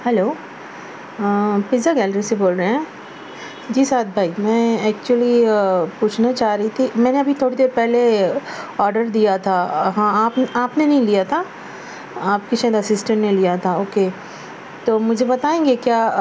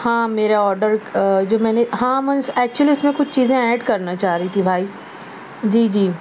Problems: none marked